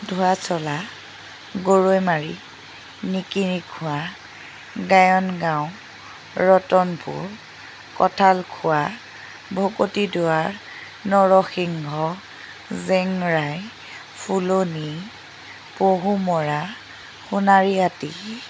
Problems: constant background noise